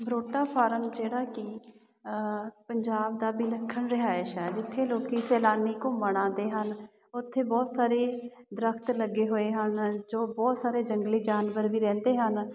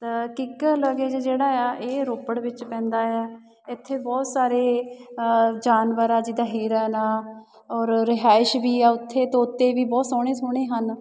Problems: none marked